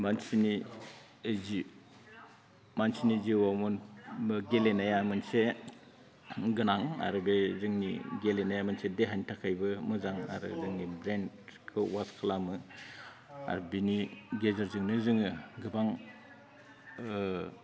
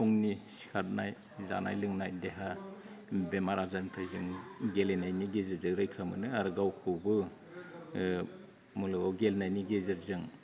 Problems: low volume